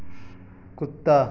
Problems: none marked